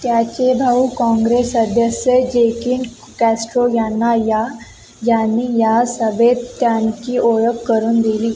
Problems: none marked